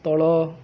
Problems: constant background noise